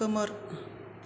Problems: constant background noise